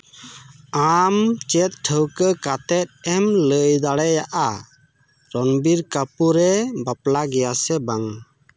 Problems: none marked